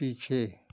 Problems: constant background noise